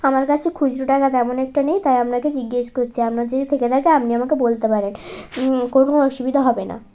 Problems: constant background noise